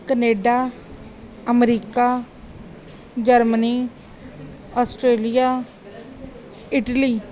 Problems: background conversations at intervals